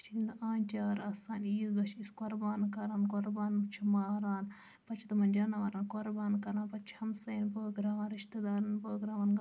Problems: low volume